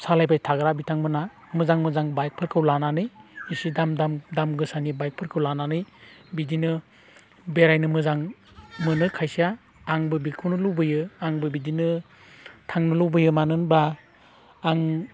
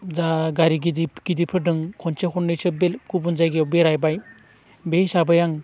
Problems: none marked